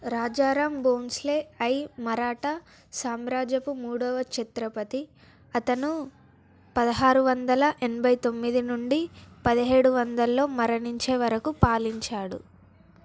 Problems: none marked